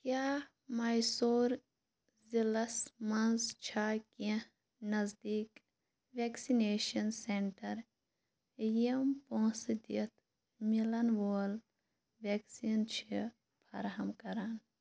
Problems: background sounds at intervals